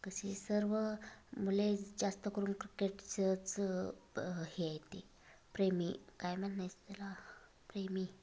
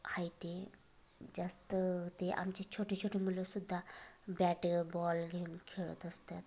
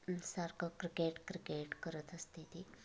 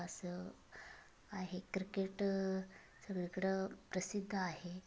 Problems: constant background noise, continuous background conversations